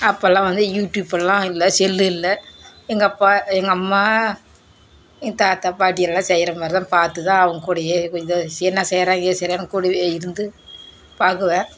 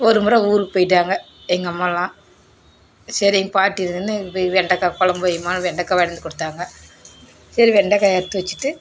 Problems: constant background noise